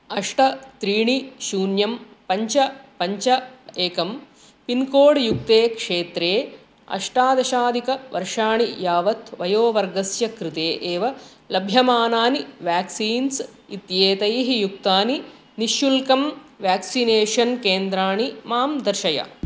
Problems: constant background noise